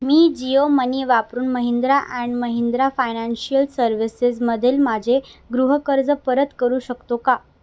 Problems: constant background noise